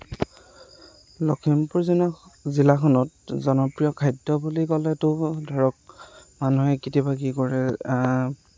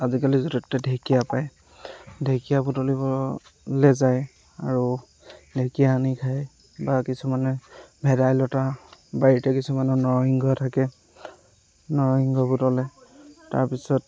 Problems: none marked